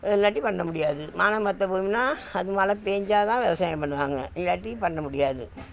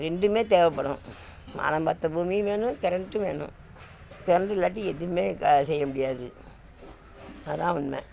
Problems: constant background noise, background conversations at intervals